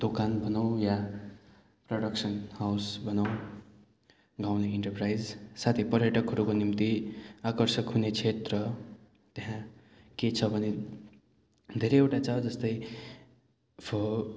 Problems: constant background noise